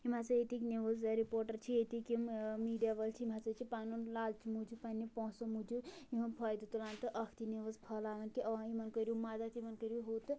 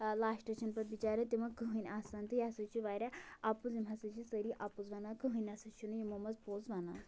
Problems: background conversations at intervals